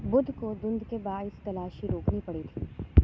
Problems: constant background noise, low volume